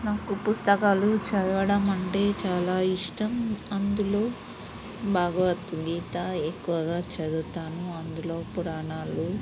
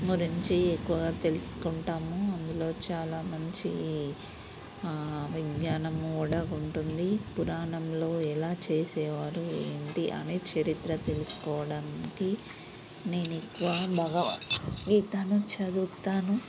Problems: constant background noise, low volume